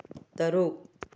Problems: low volume